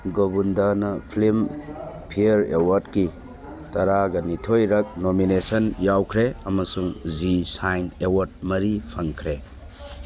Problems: constant background noise